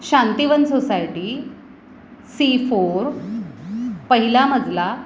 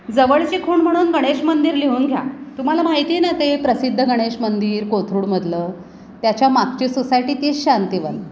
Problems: constant background noise